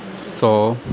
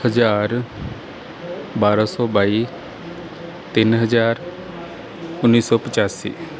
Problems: background sounds at intervals, background conversations at intervals